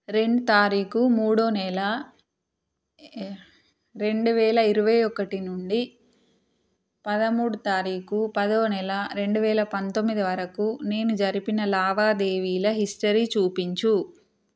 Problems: none marked